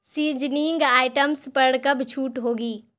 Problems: constant background noise